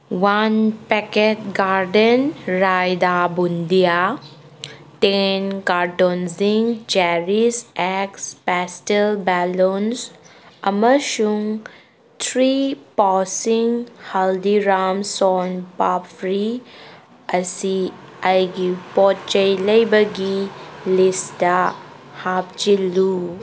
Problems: background sounds at intervals